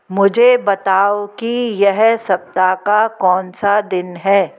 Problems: none marked